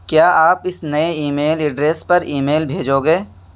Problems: constant background noise